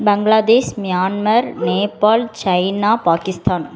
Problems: continuous background conversations